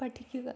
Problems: low volume